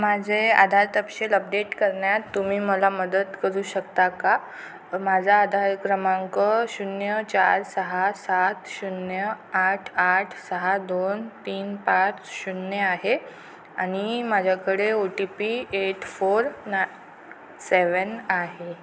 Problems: constant background noise